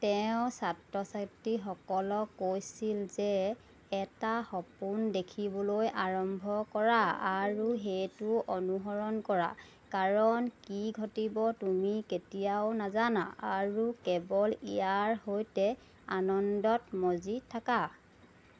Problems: none marked